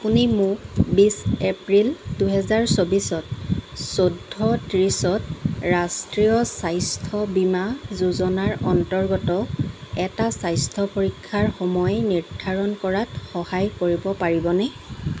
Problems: constant background noise